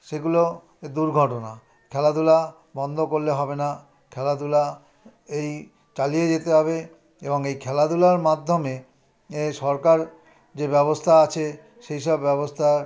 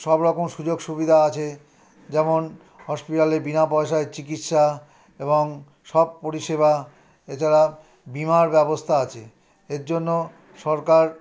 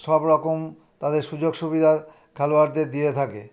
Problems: background conversations at intervals